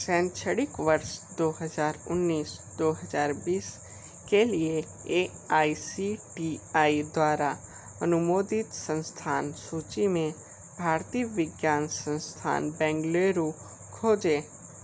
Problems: none marked